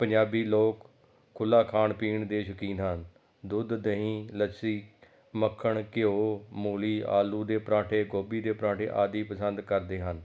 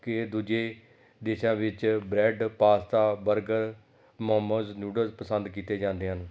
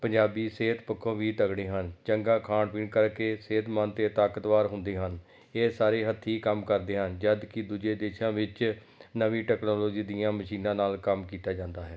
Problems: background sounds at intervals